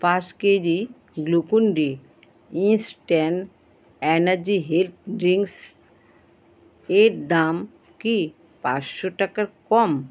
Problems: constant background noise